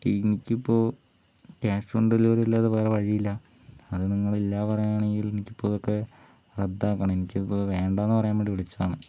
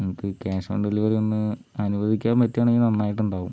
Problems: none marked